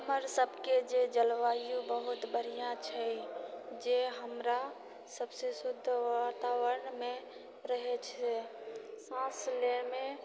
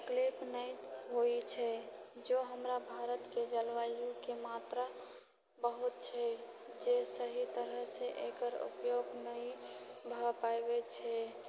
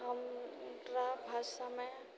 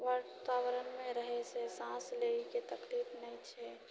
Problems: low volume